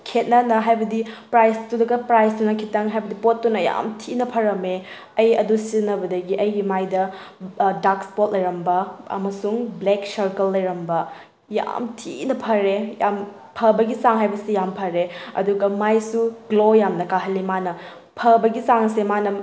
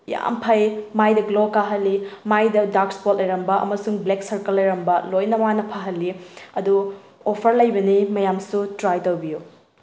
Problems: background sounds at intervals